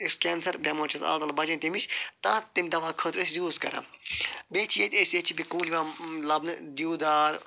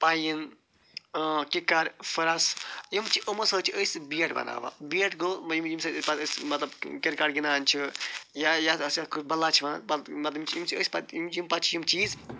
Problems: none marked